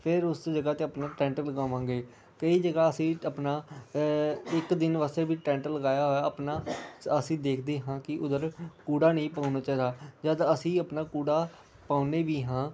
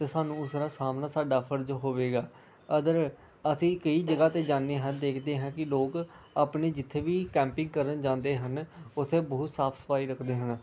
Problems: none marked